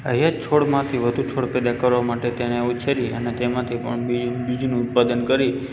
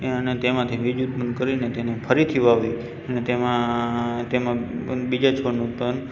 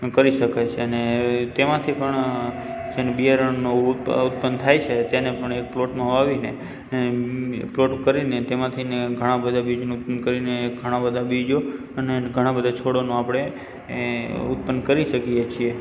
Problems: background sounds at intervals